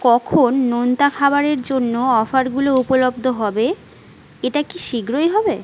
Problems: constant background noise